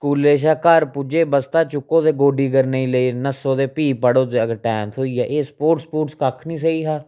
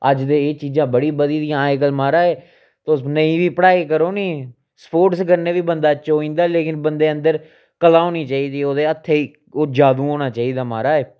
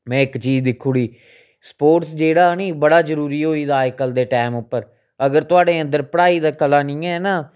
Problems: none marked